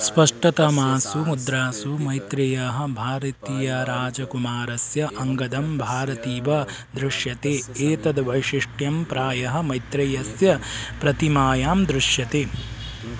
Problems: constant background noise